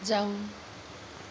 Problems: low volume